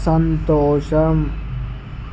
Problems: constant background noise